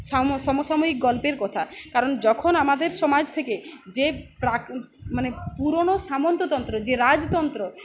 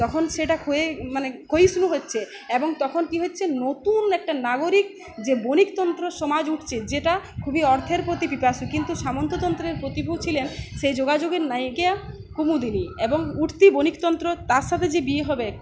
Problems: none marked